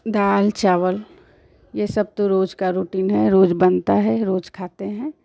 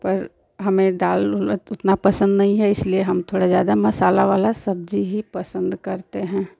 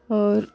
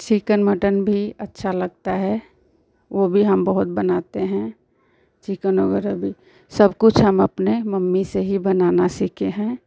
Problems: constant background noise